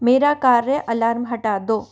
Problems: background sounds at intervals